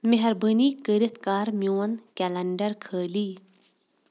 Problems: background sounds at intervals